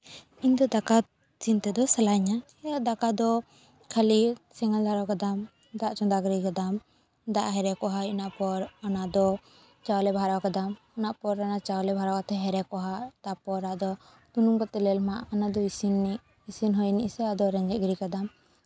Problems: background sounds at intervals